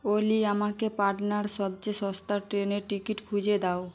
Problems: constant background noise